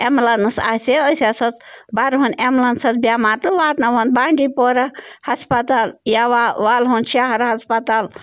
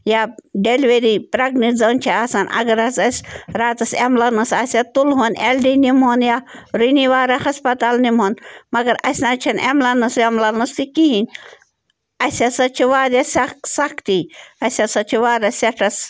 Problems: background sounds at intervals